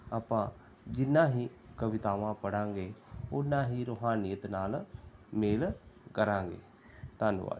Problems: background sounds at intervals, background conversations at intervals